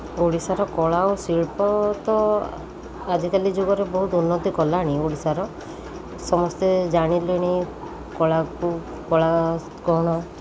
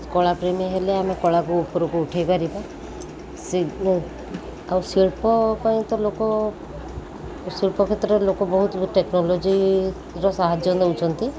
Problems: constant background noise, continuous background conversations